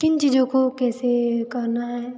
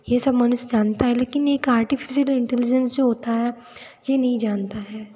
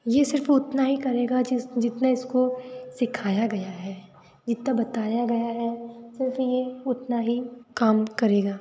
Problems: constant background noise